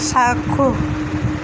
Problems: constant background noise